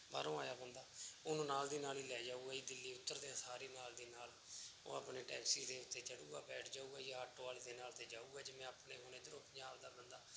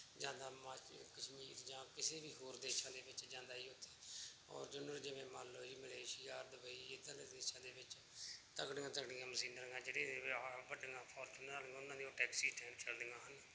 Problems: none marked